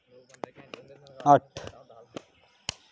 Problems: none marked